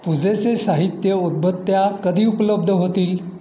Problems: none marked